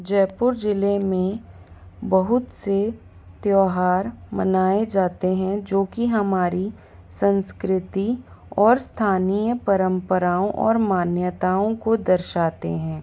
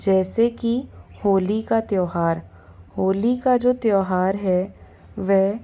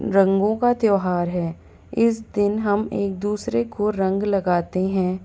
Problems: background sounds at intervals